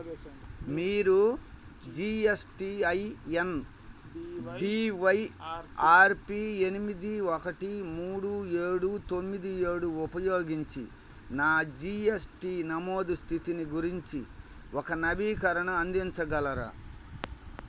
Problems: background conversations at intervals